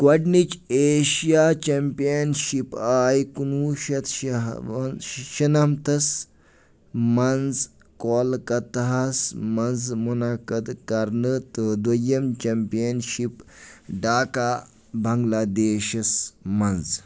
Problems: none marked